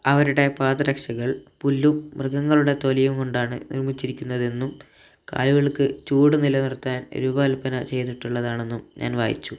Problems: low volume